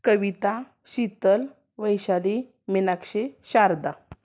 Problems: none marked